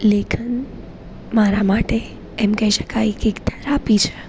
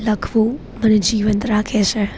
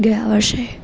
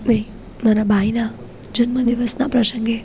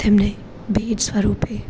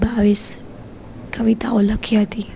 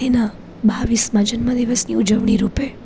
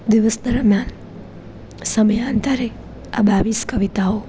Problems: none marked